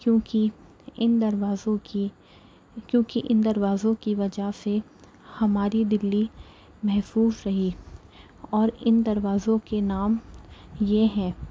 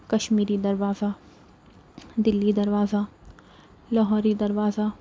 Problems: none marked